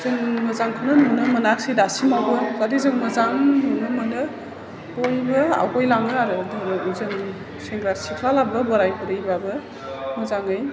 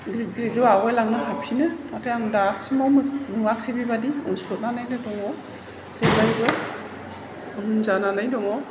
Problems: low volume